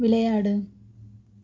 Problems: none marked